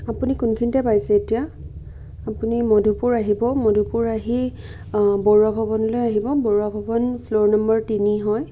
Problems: background sounds at intervals